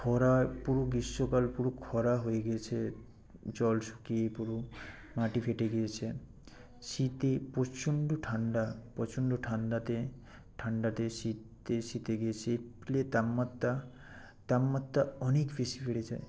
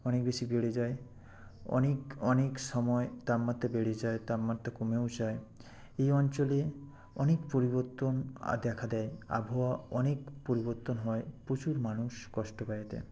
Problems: background sounds at intervals